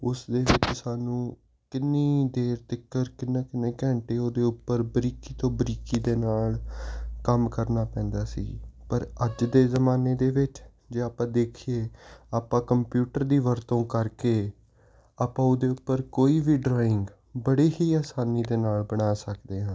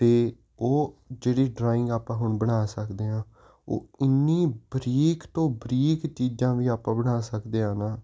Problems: constant background noise